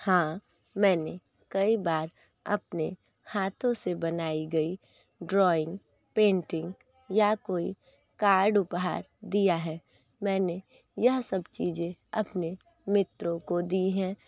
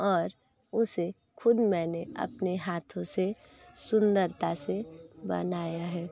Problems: constant background noise